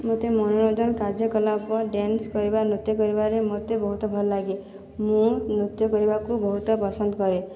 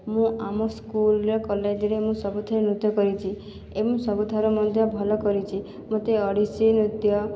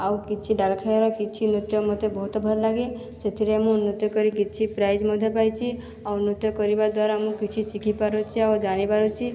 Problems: background conversations at intervals